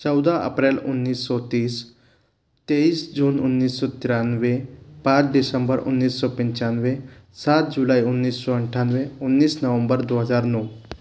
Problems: constant background noise